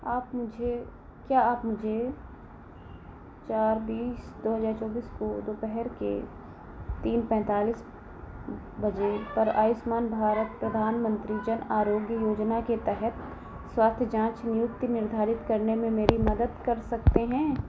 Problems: none marked